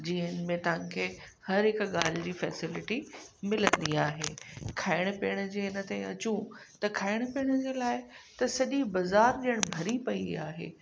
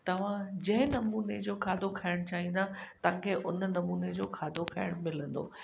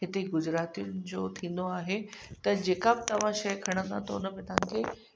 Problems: constant background noise, echo